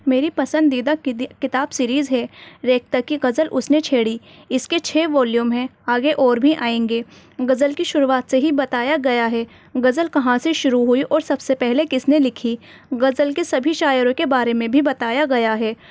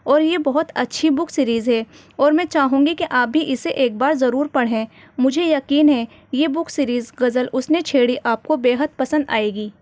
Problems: none marked